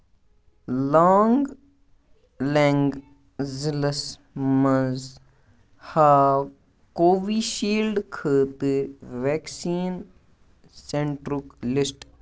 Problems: none marked